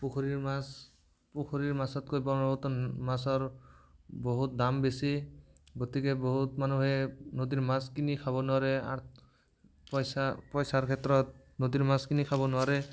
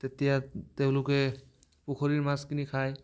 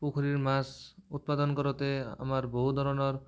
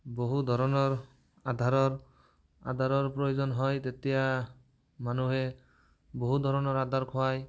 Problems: background conversations at intervals